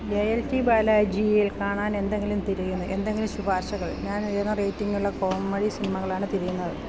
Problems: none marked